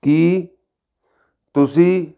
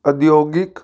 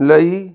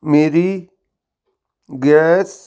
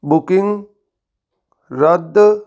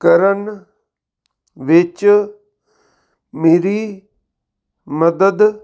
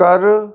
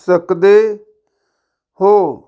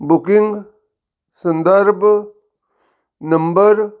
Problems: none marked